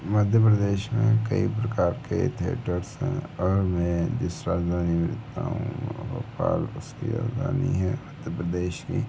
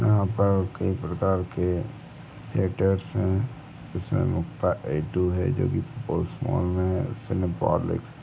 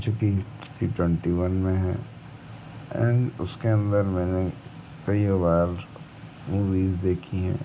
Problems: background sounds at intervals